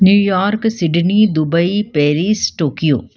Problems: background sounds at intervals